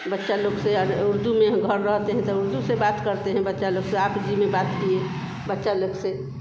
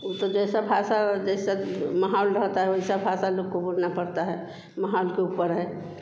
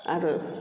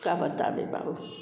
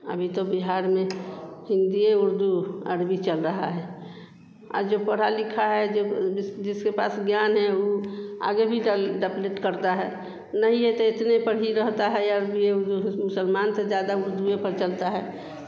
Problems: constant background noise